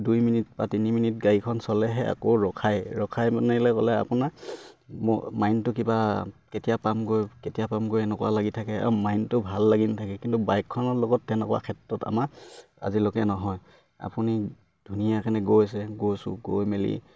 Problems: none marked